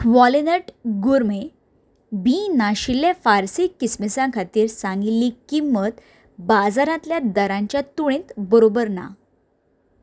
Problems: background sounds at intervals